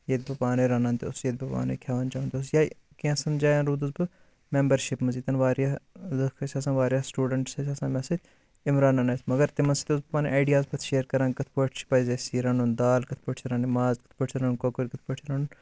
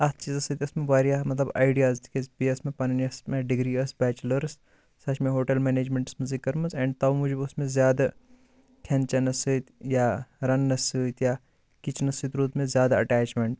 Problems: none marked